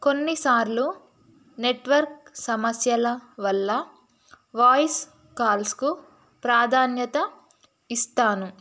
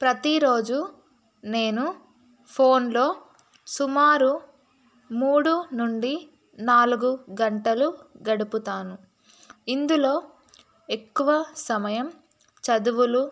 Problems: constant background noise